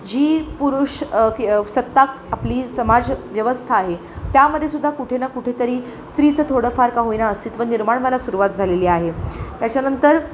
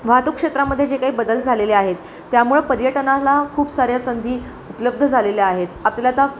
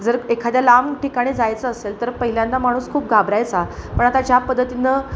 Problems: constant background noise